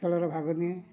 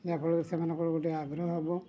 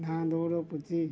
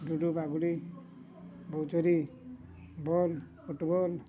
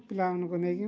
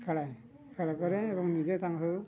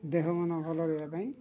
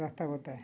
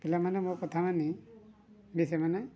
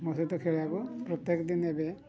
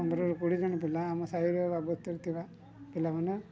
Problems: low volume